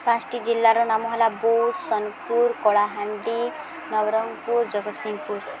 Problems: constant background noise, continuous background conversations